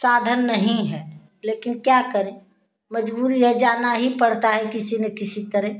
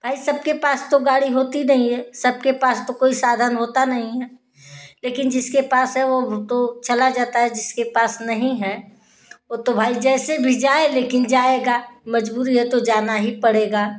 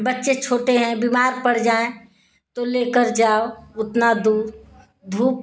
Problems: constant background noise